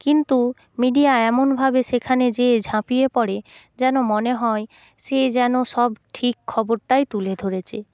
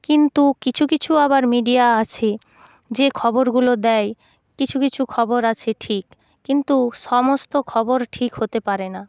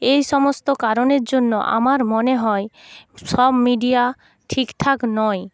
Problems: none marked